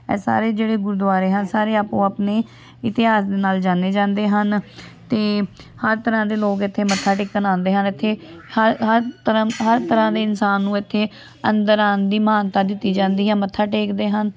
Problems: continuous background conversations